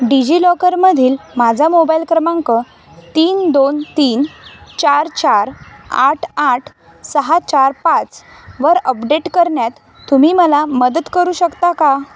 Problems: constant background noise, background conversations at intervals